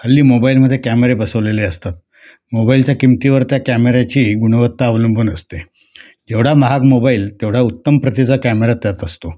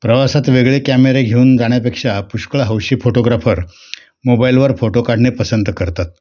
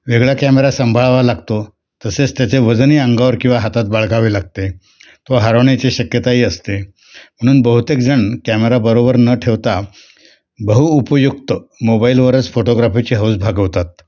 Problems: constant background noise, background conversations at intervals